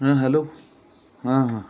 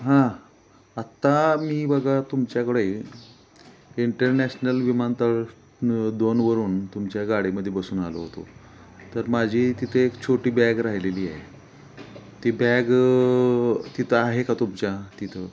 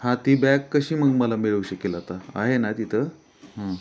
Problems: background sounds at intervals